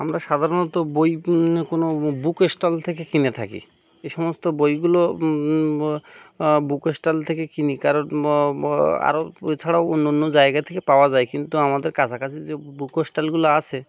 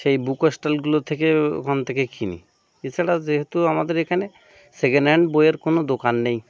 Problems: constant background noise